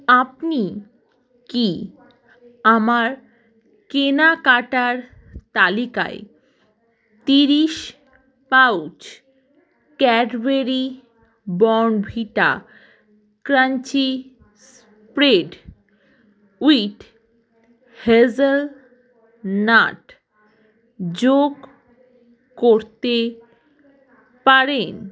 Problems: none marked